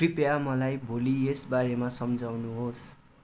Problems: constant background noise